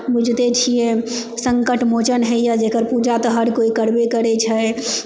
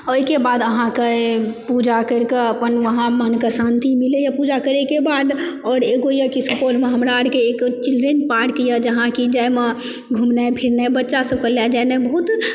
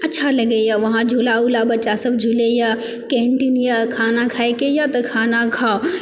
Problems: background conversations at intervals